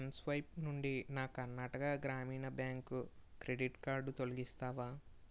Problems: none marked